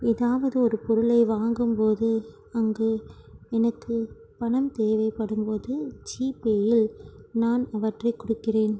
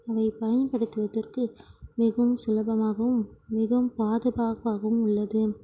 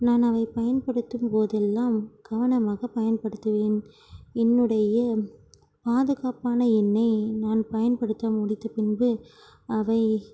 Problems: none marked